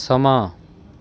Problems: none marked